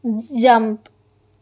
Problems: none marked